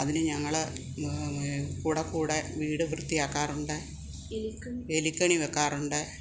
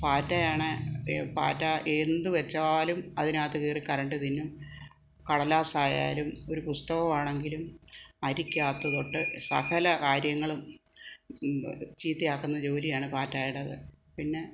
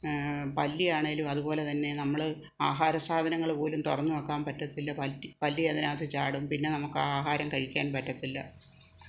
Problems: background conversations at intervals